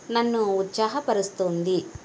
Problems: constant background noise